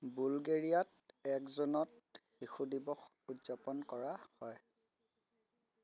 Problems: low volume